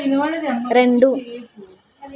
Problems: continuous background conversations